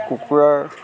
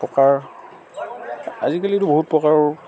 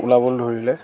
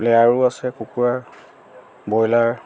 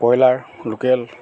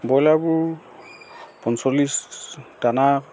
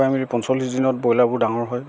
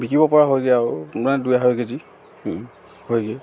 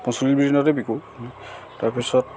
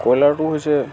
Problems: constant background noise, background conversations at intervals